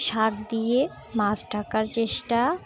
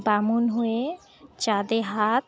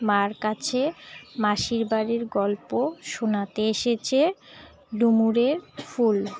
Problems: constant background noise